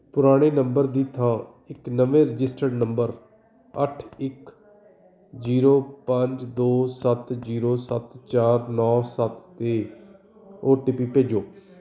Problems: continuous background conversations